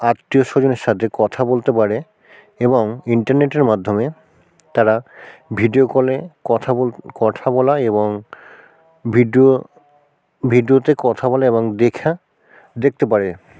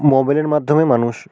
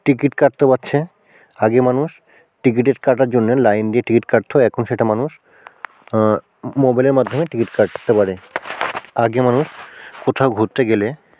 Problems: background sounds at intervals